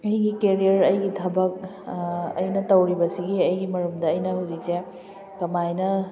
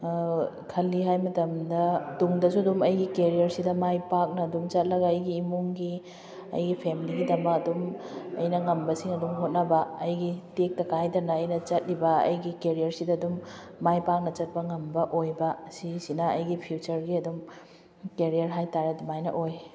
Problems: background conversations at intervals